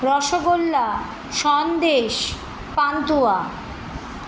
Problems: none marked